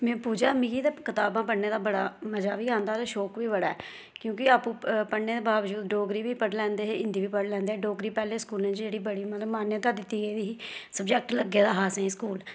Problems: none marked